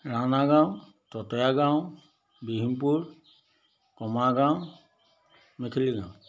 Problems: none marked